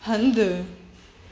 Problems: constant background noise, echo